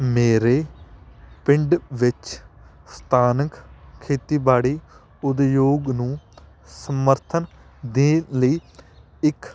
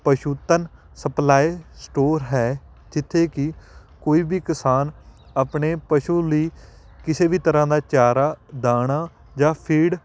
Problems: background sounds at intervals